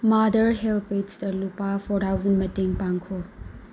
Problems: low volume